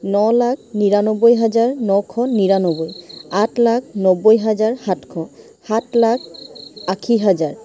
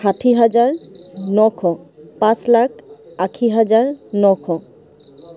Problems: constant background noise, background conversations at intervals